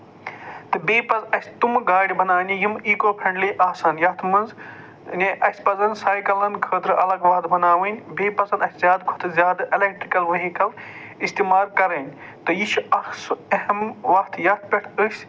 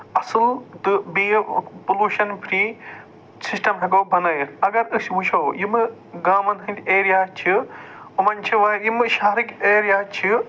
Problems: none marked